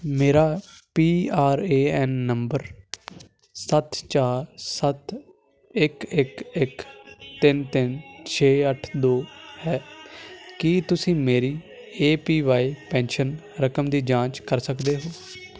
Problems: constant background noise